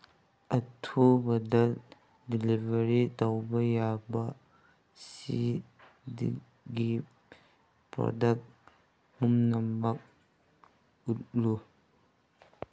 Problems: background sounds at intervals